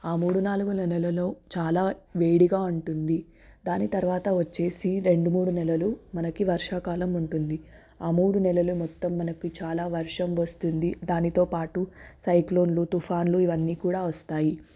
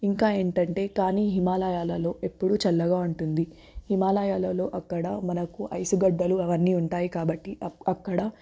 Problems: background sounds at intervals